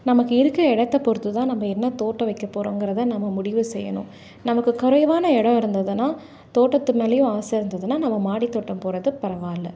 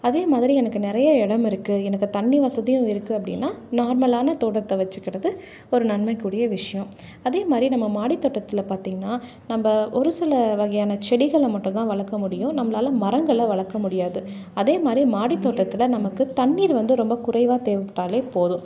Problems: background conversations at intervals